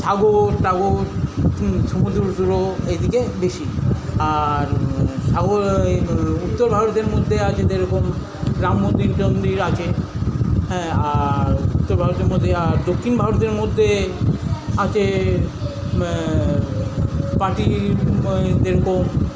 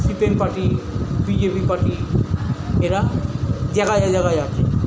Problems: constant background noise, continuous background conversations